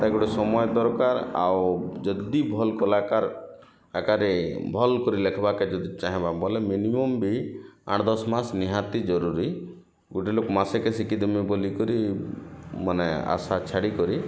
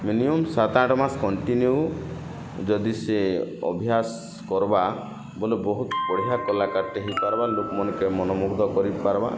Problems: constant background noise